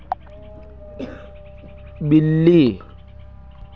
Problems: constant background noise, continuous background conversations